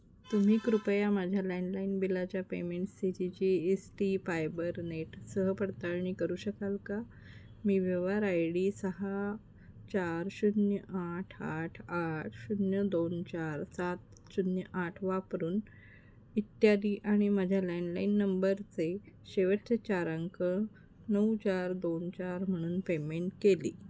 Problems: constant background noise